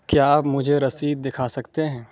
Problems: background sounds at intervals